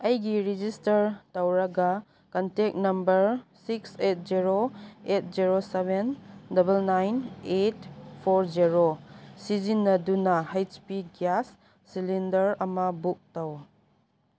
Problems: background sounds at intervals